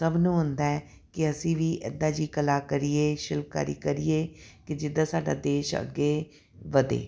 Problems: none marked